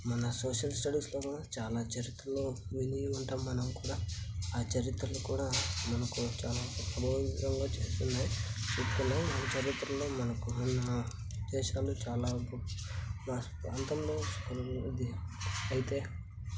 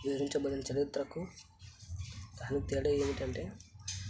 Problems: constant background noise